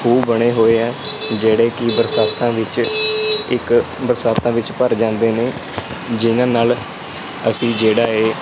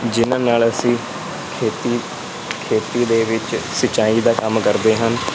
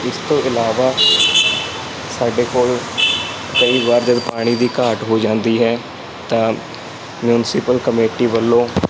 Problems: constant background noise